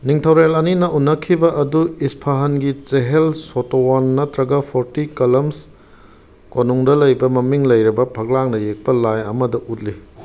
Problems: none marked